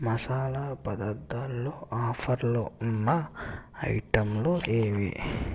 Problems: none marked